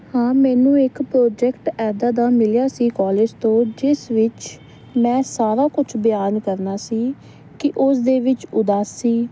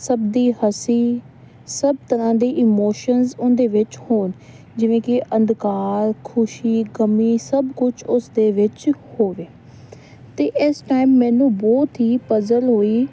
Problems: constant background noise